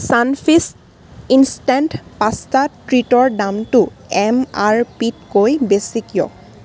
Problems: constant background noise